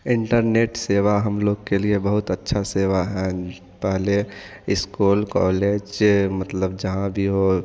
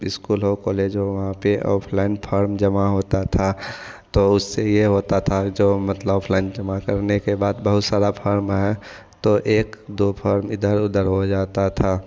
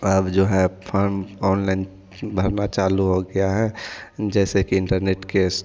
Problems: none marked